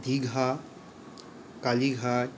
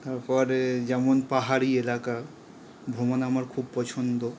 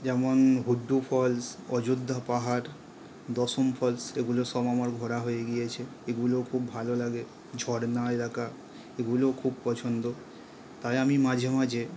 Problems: none marked